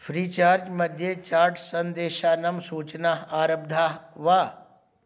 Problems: none marked